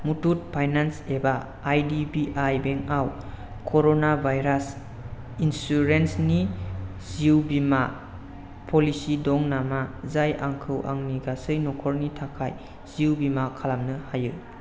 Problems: constant background noise